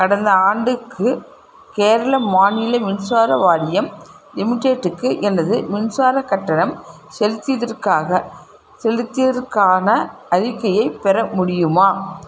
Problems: background sounds at intervals